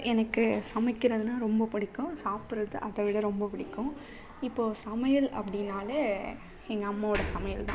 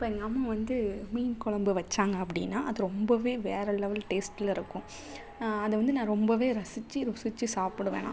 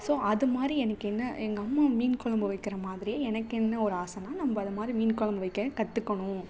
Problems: background sounds at intervals